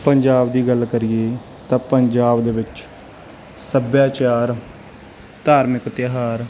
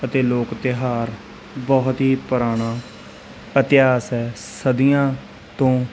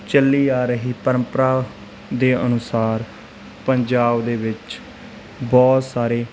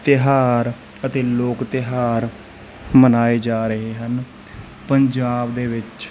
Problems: constant background noise, background conversations at intervals